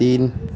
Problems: none marked